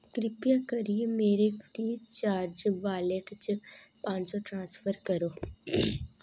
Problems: none marked